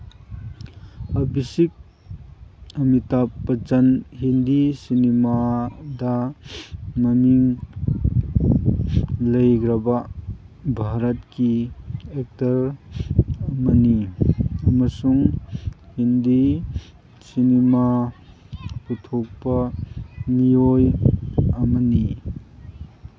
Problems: background sounds at intervals